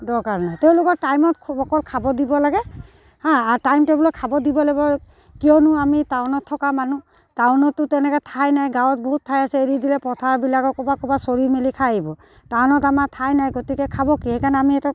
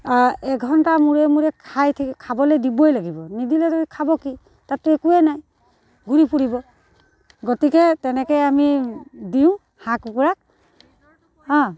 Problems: none marked